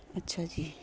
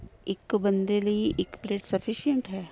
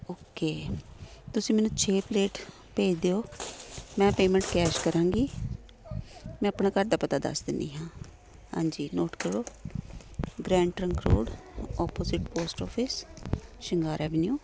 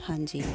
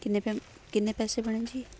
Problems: none marked